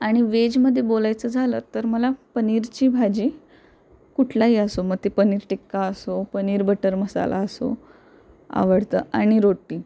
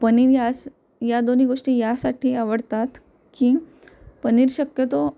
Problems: constant background noise